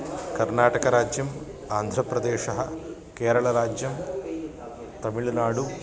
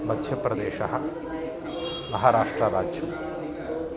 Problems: constant background noise, continuous background conversations